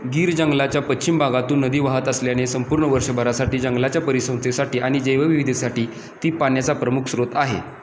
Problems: constant background noise